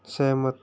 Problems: constant background noise